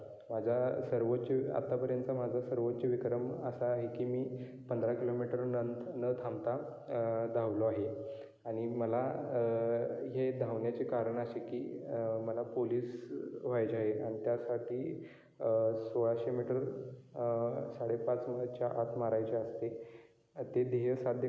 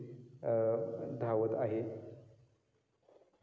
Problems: background sounds at intervals